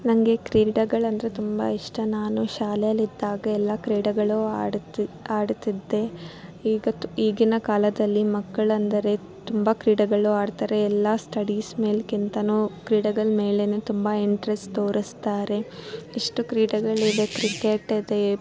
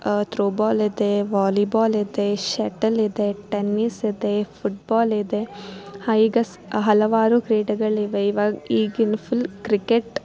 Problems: background sounds at intervals